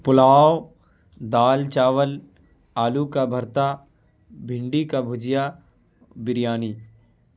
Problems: none marked